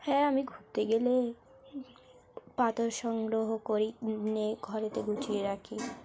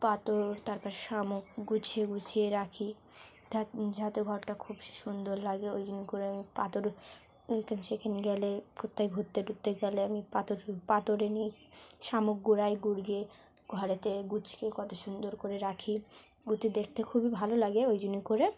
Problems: none marked